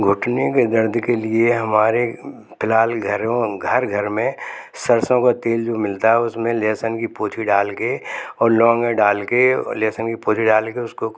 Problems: none marked